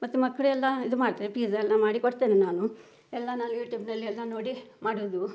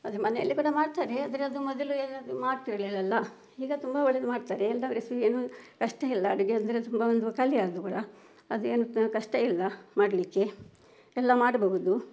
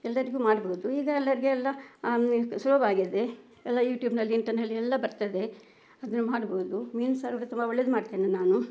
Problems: background sounds at intervals